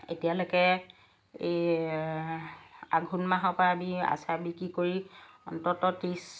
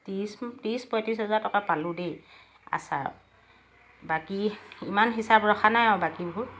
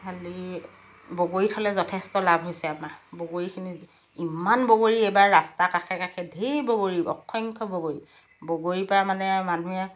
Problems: background sounds at intervals, background conversations at intervals